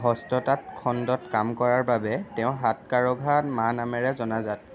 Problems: background conversations at intervals